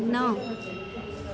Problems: constant background noise, echo